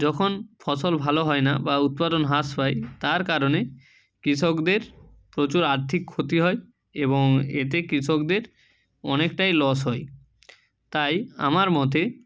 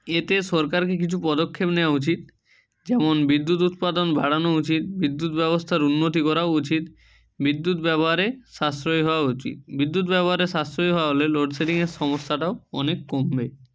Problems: none marked